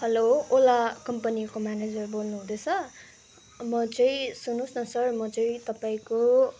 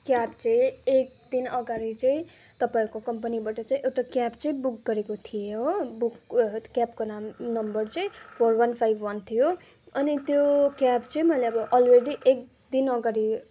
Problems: constant background noise, background conversations at intervals